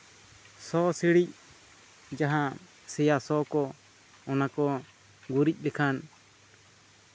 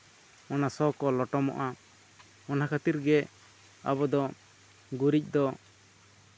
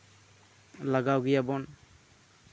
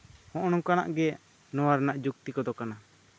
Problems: constant background noise